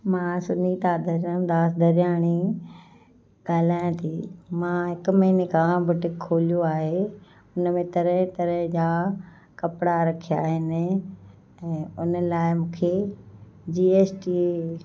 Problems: constant background noise, background conversations at intervals, echo